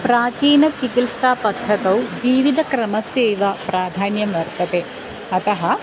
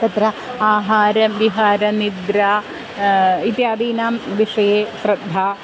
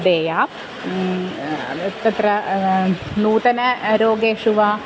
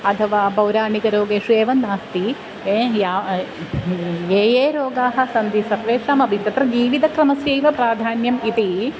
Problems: constant background noise